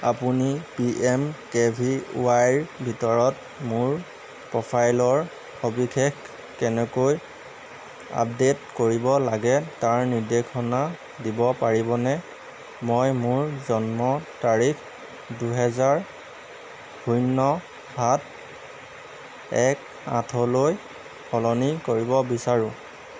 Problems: constant background noise